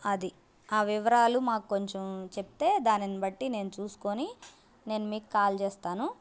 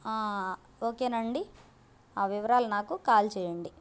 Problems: constant background noise